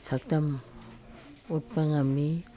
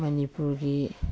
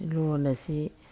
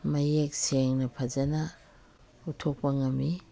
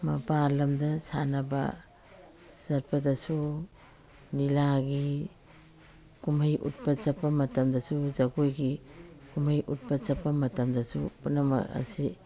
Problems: background sounds at intervals